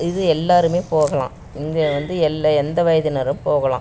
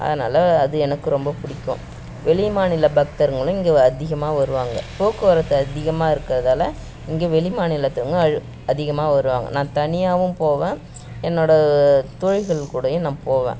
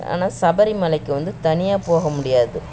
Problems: background sounds at intervals